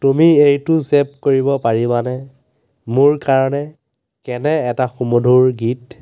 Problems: constant background noise